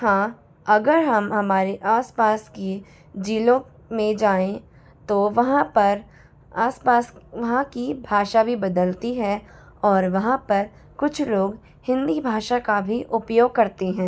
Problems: none marked